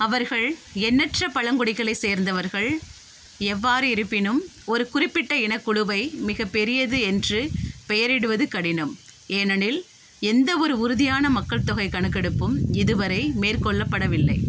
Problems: background sounds at intervals